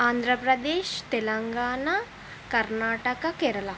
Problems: constant background noise